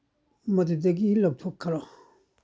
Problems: none marked